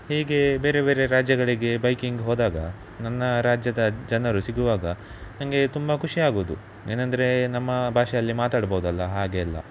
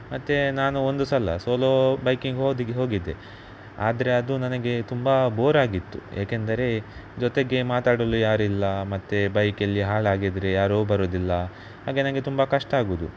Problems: none marked